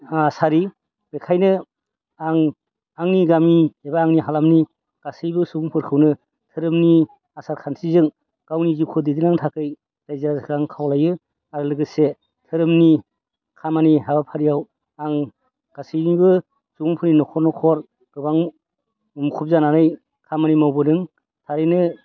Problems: constant background noise